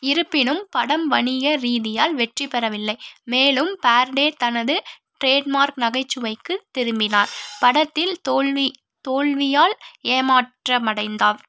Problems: background sounds at intervals